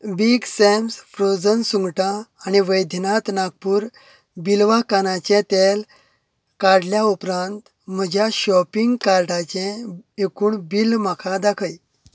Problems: none marked